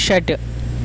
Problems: constant background noise